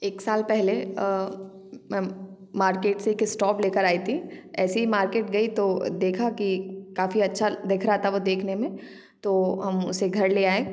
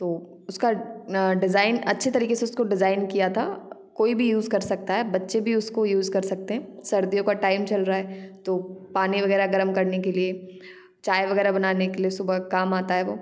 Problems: background sounds at intervals, background conversations at intervals